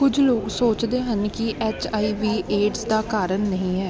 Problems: none marked